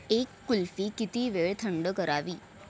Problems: none marked